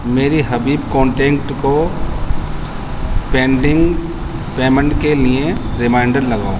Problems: constant background noise